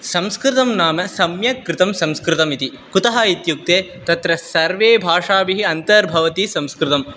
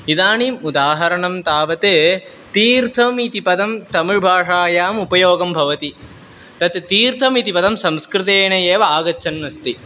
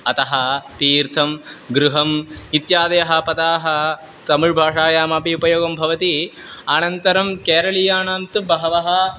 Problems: constant background noise